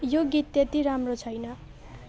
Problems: continuous background conversations